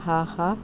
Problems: constant background noise